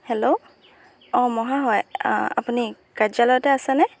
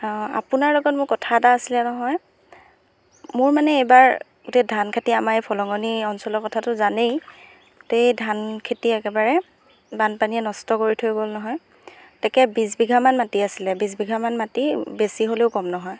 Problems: background sounds at intervals